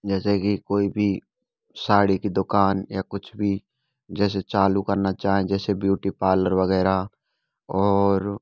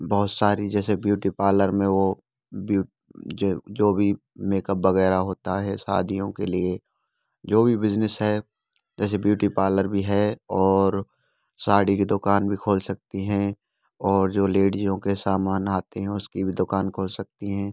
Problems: background sounds at intervals, background conversations at intervals